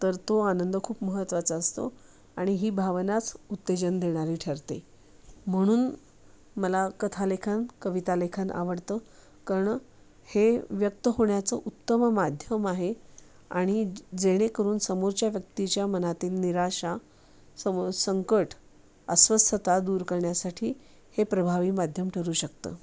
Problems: constant background noise